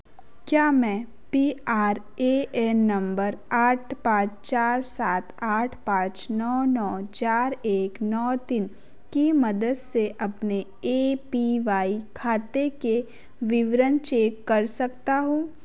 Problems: none marked